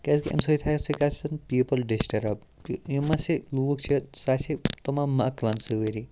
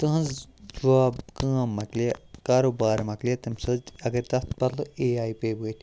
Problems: none marked